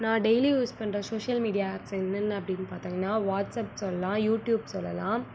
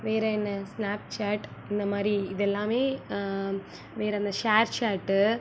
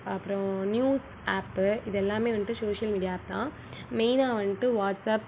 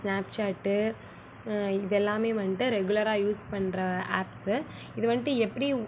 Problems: low volume